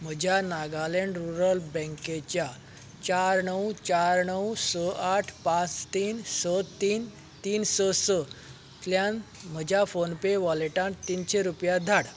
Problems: constant background noise